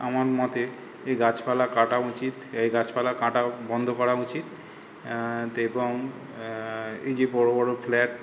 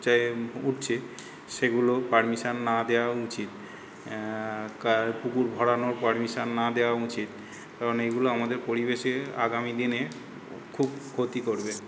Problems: constant background noise